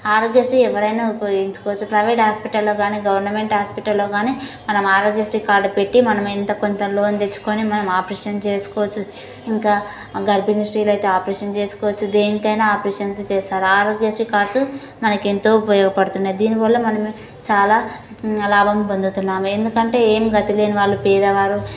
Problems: none marked